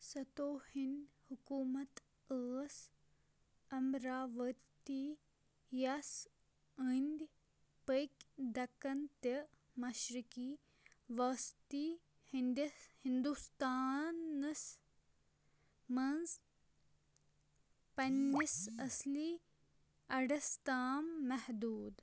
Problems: background sounds at intervals, low volume